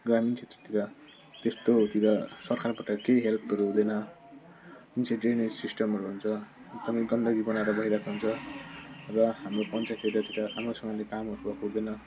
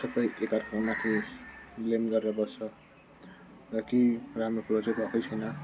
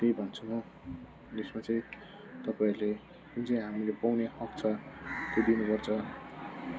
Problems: constant background noise, low volume